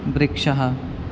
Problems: constant background noise